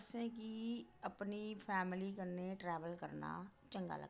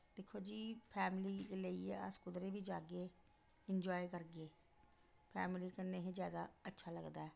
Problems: constant background noise, echo